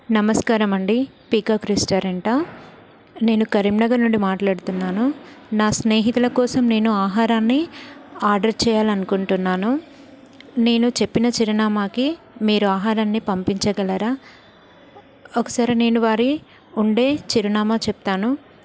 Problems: none marked